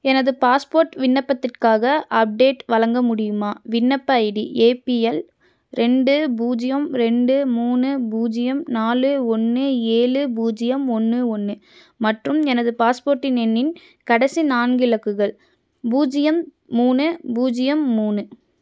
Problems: none marked